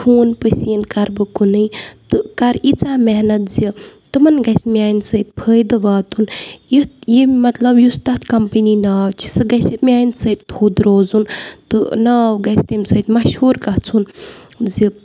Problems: none marked